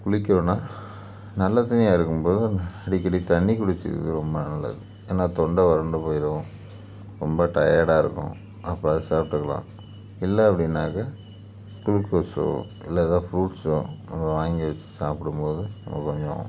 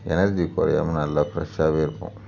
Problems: background sounds at intervals